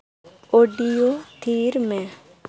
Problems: none marked